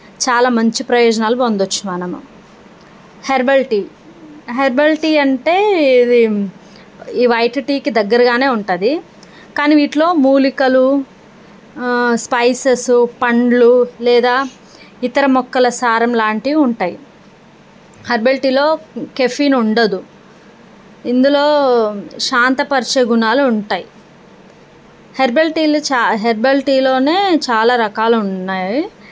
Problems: none marked